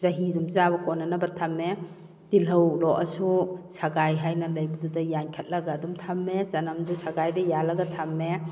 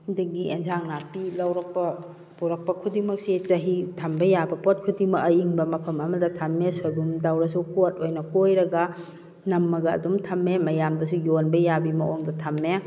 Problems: background sounds at intervals